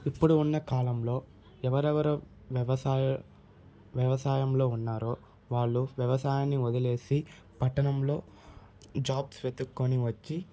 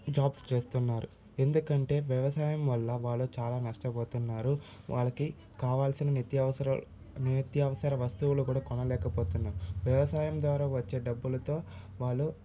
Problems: none marked